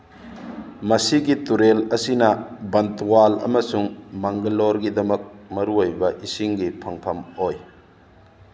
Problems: background sounds at intervals